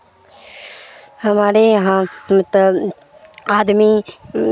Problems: constant background noise